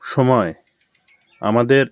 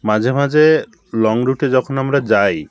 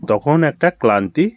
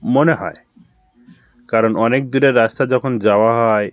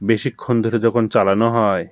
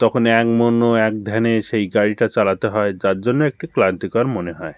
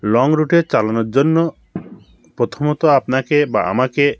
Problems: background sounds at intervals, background conversations at intervals